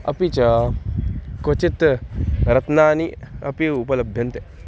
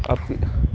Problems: none marked